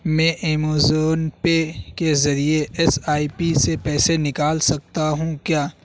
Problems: constant background noise